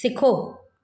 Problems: none marked